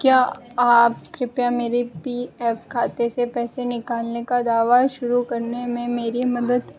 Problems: constant background noise